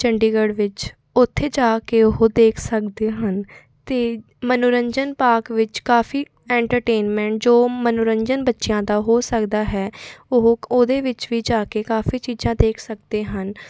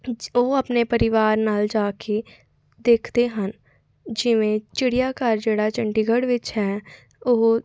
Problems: none marked